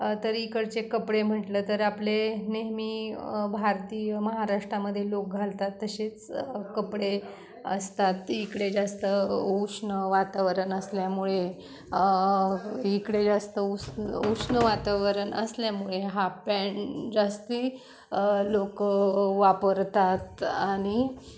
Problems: none marked